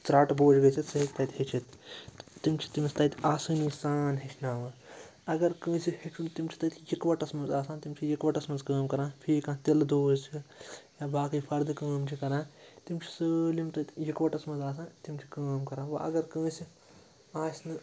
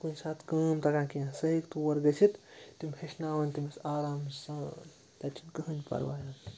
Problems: background sounds at intervals, background conversations at intervals